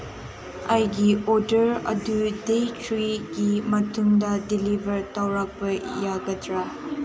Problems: constant background noise